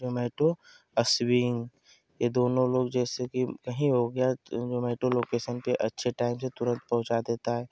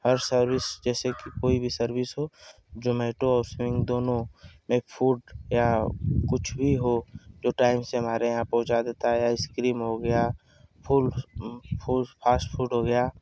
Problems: none marked